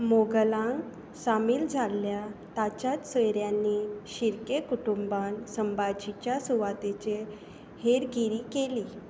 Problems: constant background noise, low volume